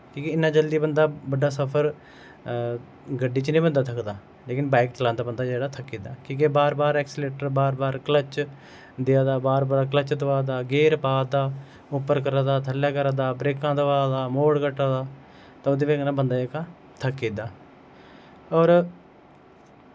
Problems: none marked